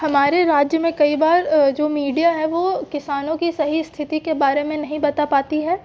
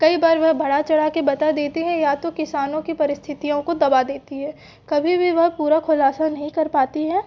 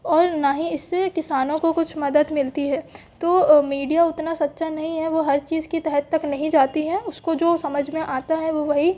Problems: background sounds at intervals